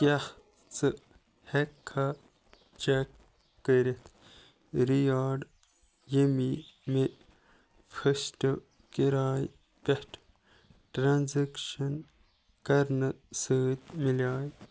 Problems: none marked